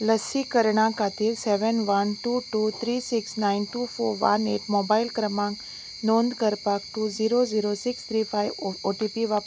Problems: none marked